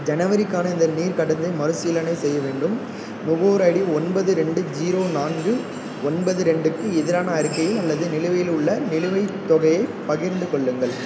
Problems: constant background noise